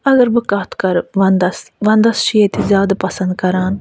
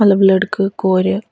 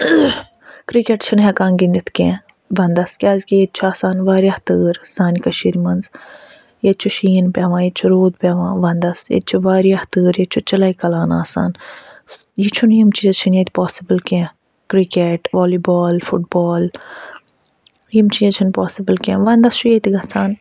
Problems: none marked